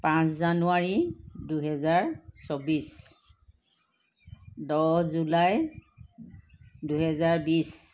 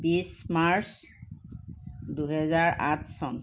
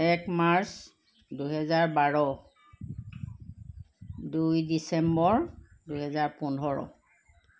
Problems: constant background noise